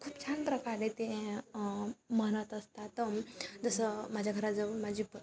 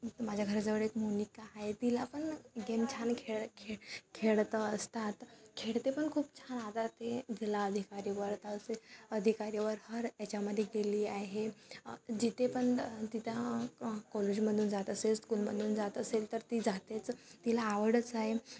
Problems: constant background noise, background conversations at intervals